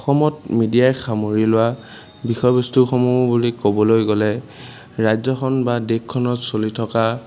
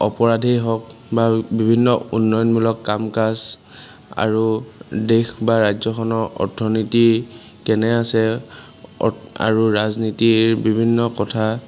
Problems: background sounds at intervals